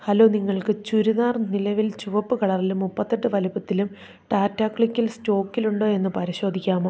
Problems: none marked